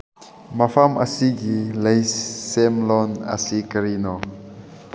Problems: none marked